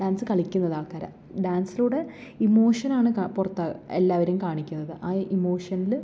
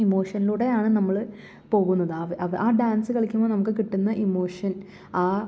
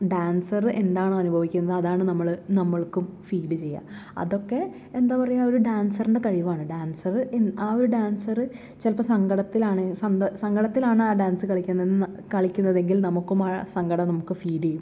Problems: none marked